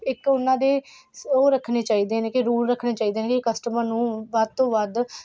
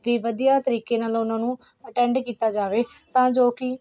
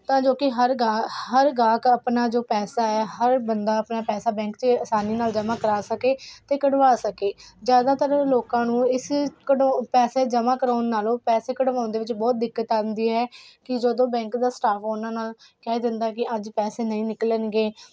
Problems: none marked